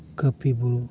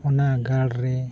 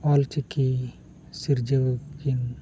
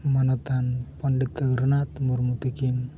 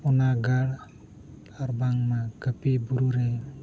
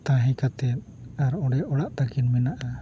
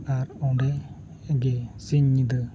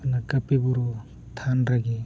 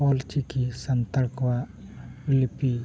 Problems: background sounds at intervals, low volume